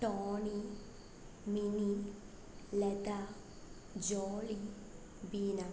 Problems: low volume